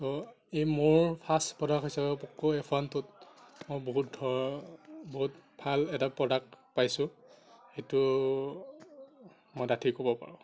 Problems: none marked